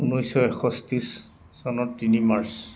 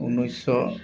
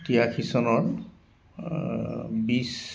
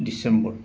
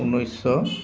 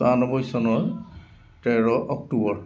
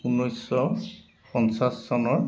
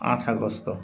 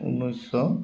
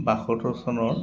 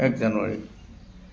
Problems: constant background noise, background conversations at intervals